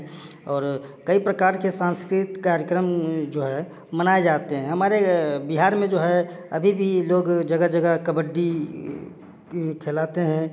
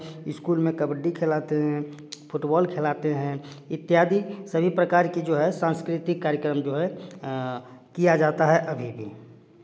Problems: none marked